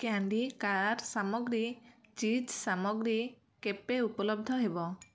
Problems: none marked